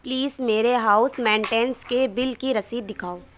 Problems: none marked